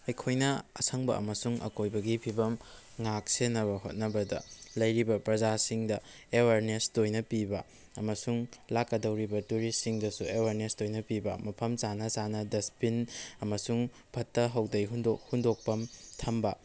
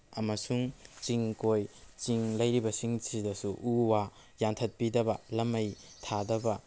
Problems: background sounds at intervals